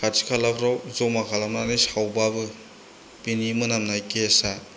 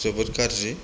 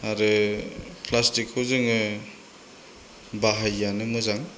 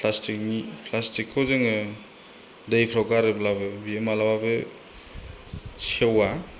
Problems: constant background noise